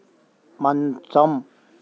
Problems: constant background noise